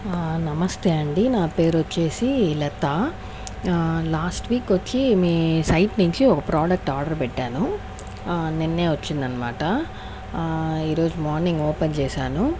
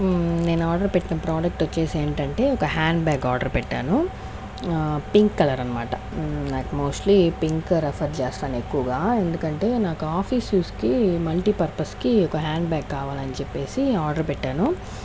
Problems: constant background noise